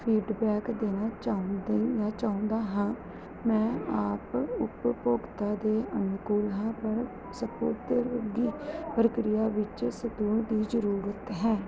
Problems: none marked